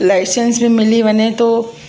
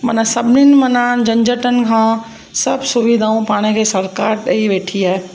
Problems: constant background noise, echo